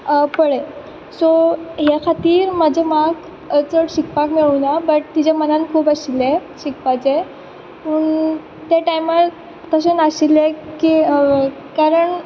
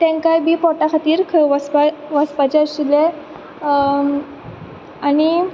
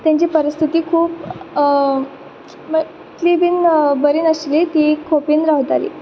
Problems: background sounds at intervals